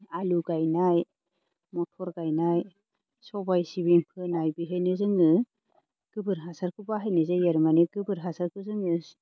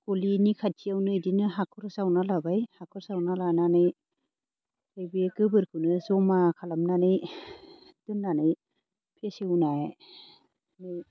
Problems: background sounds at intervals